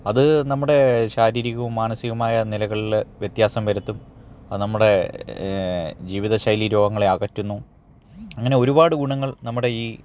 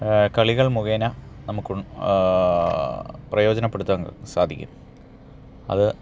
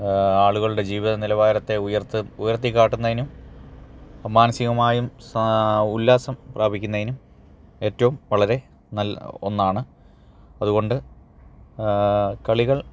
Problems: none marked